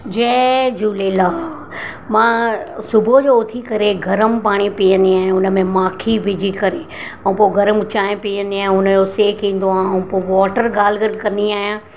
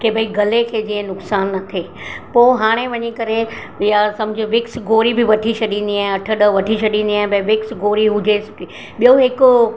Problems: constant background noise, background conversations at intervals